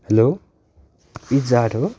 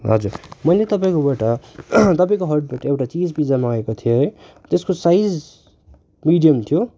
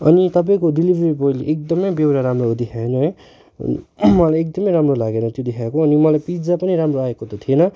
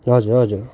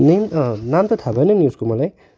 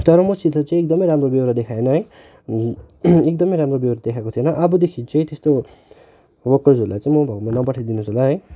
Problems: background sounds at intervals